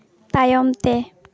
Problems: constant background noise